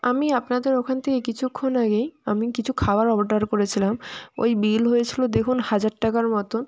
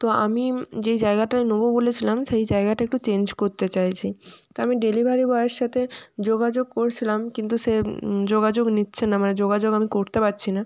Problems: background sounds at intervals, background conversations at intervals